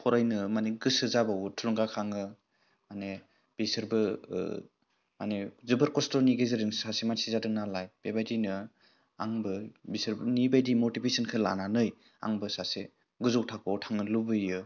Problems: none marked